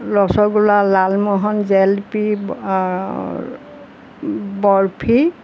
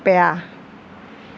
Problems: none marked